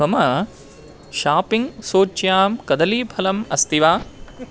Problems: constant background noise